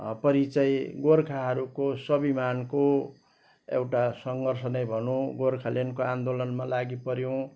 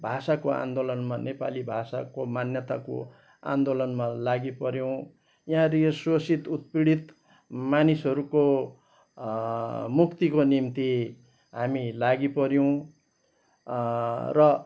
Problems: background sounds at intervals